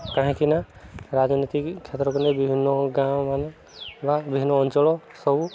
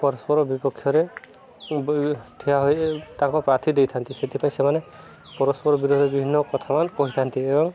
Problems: continuous background conversations